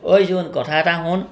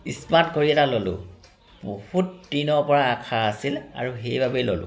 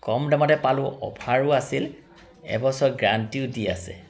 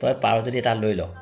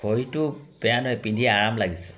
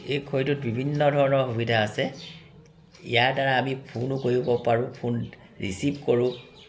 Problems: constant background noise, continuous background conversations